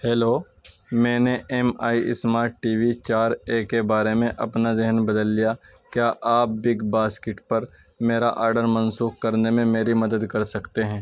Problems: background sounds at intervals, background conversations at intervals